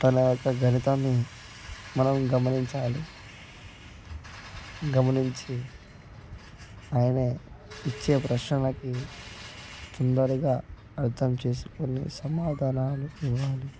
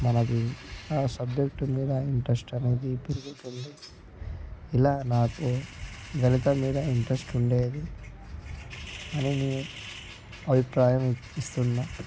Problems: background sounds at intervals, continuous background conversations, low volume